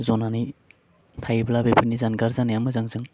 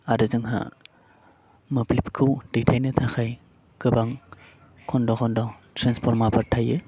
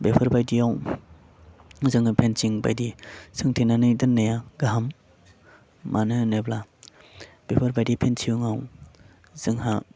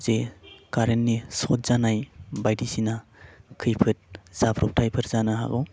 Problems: constant background noise